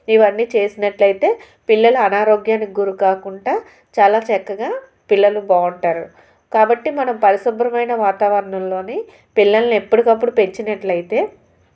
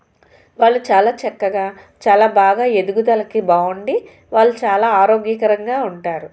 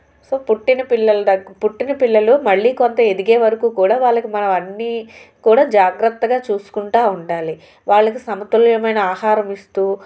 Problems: none marked